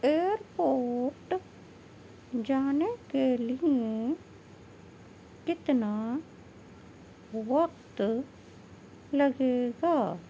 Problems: none marked